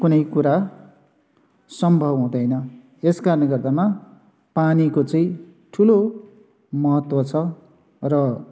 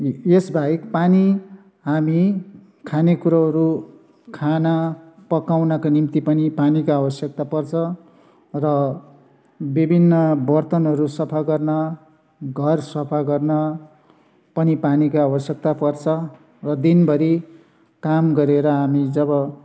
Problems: constant background noise